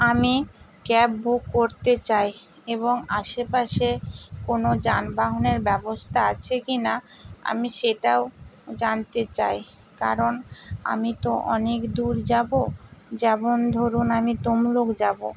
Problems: constant background noise